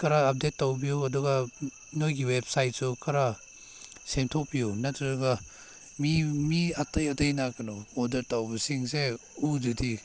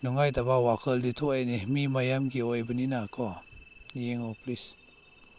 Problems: background sounds at intervals